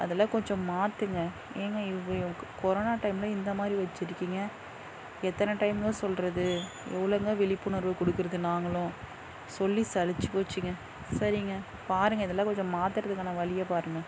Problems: none marked